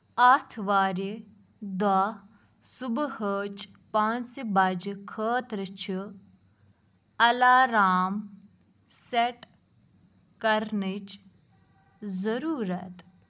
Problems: constant background noise